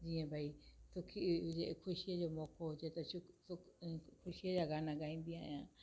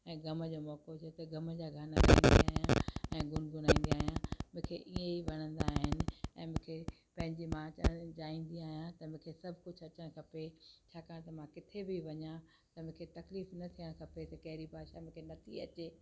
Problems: constant background noise